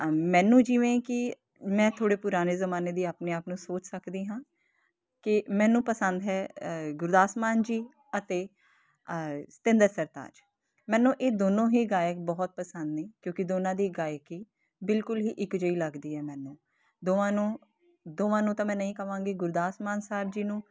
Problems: constant background noise